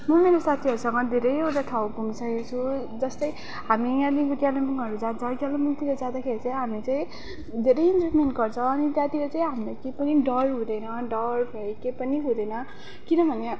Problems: background sounds at intervals